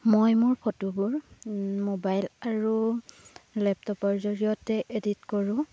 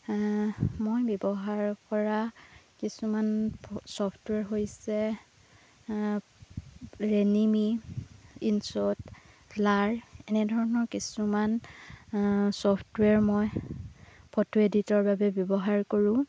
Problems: constant background noise